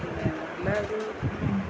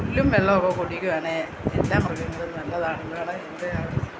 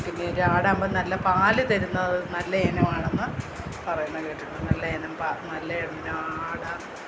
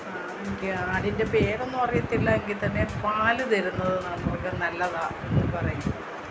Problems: constant background noise, low volume